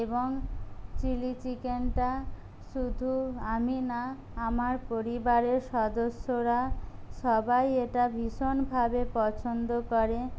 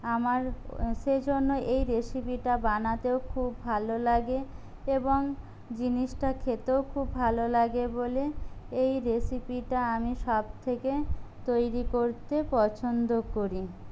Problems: none marked